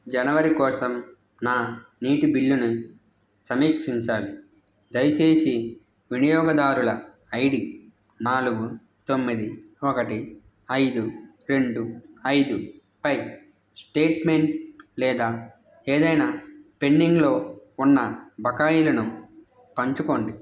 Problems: constant background noise